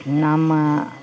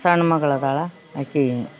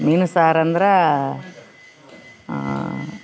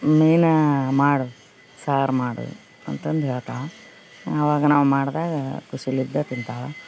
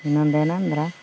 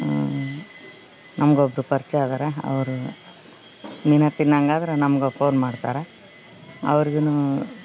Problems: background sounds at intervals